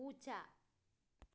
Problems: low volume